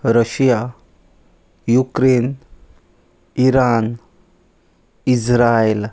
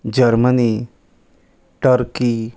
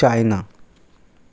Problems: constant background noise